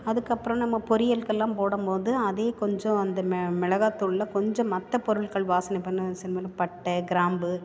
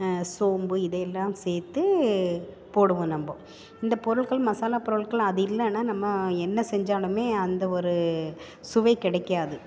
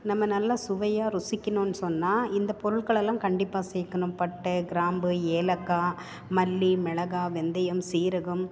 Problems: none marked